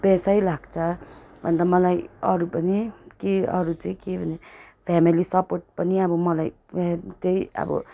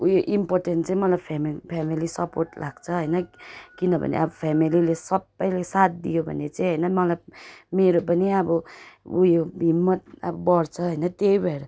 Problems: background sounds at intervals